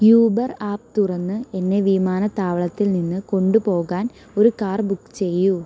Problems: constant background noise